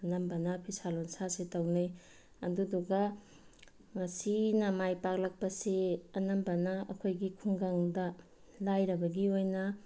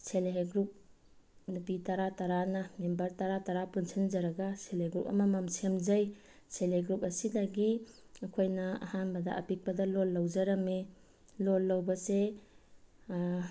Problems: none marked